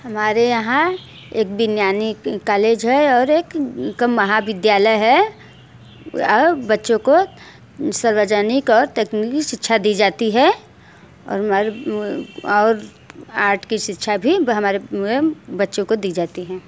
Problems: background sounds at intervals